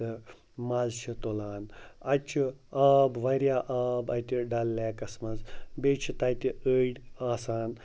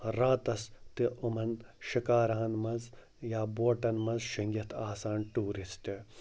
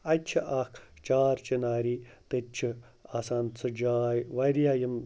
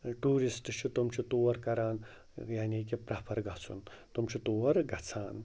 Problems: none marked